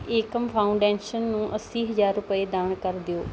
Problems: none marked